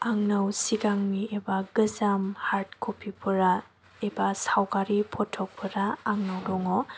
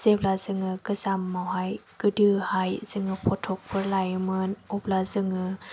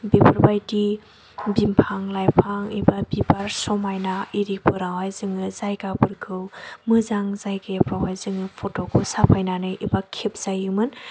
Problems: none marked